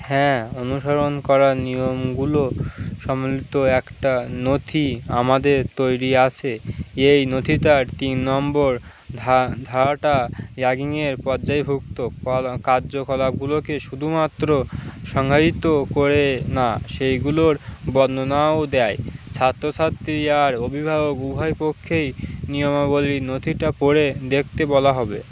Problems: constant background noise